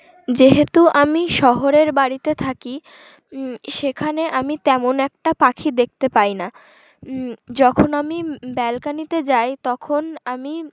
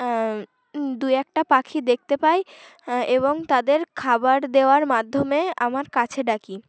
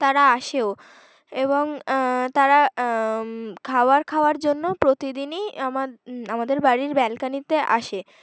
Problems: background sounds at intervals, background conversations at intervals